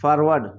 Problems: background sounds at intervals